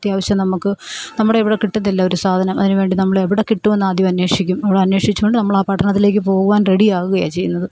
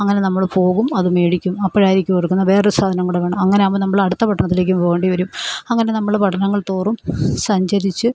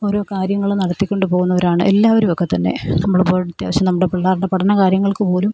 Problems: none marked